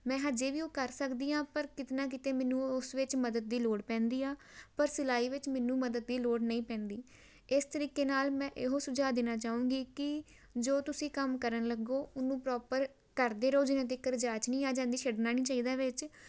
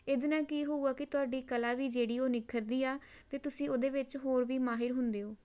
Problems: none marked